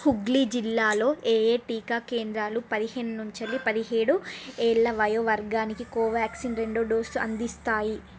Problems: constant background noise